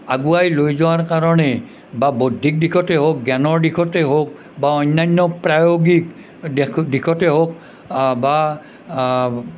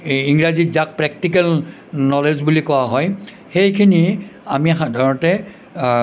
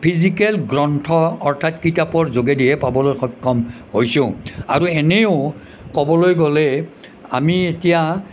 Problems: none marked